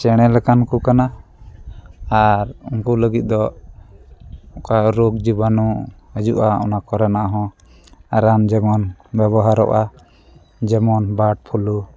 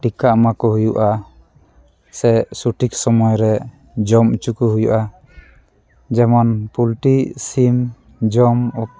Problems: constant background noise